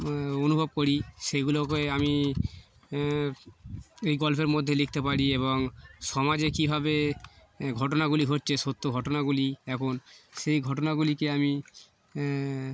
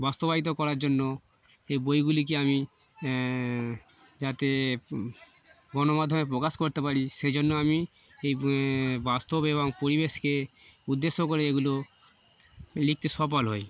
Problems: constant background noise, background conversations at intervals